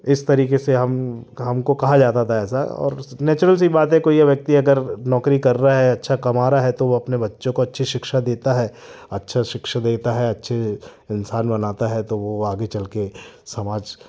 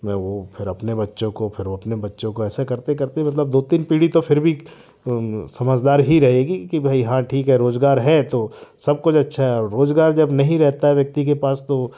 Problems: constant background noise